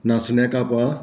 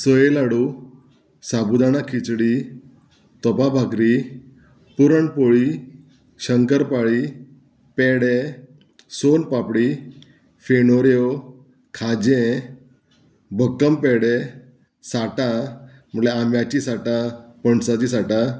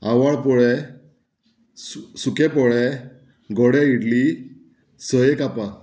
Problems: none marked